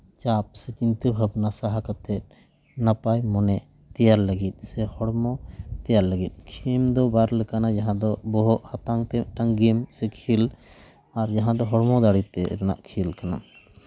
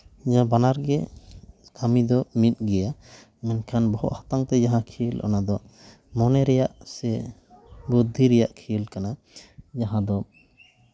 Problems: constant background noise